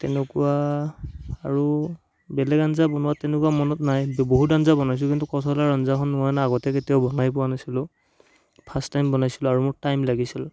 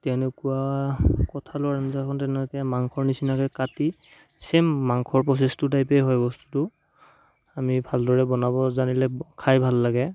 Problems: background sounds at intervals